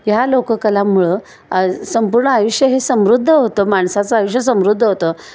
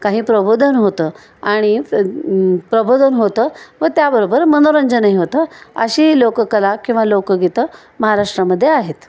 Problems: constant background noise